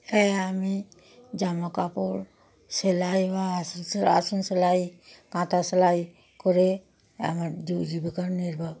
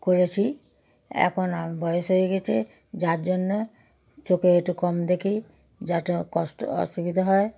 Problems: none marked